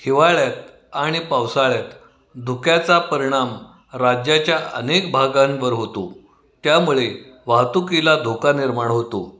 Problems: none marked